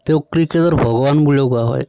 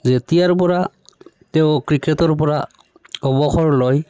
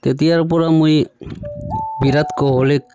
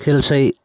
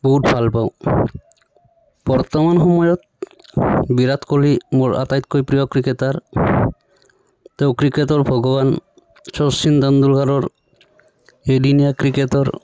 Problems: none marked